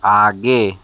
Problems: constant background noise